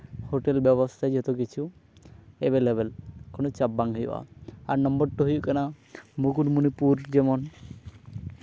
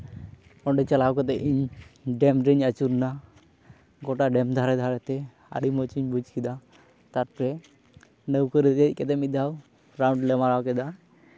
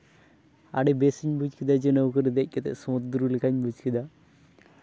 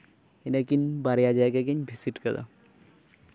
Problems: none marked